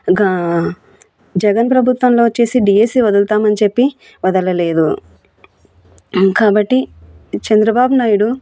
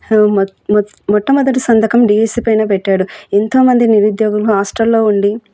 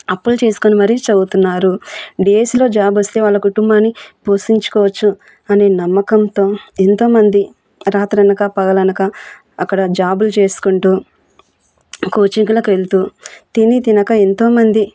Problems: none marked